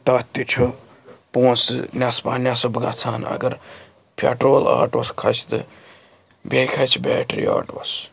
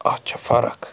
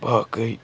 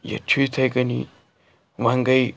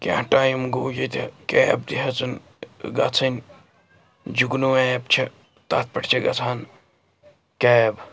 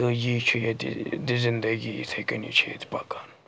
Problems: background sounds at intervals, background conversations at intervals